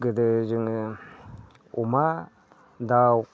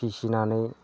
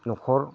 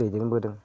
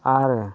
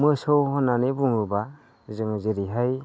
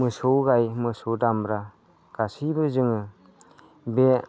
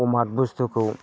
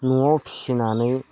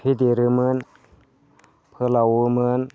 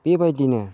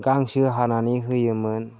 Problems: low volume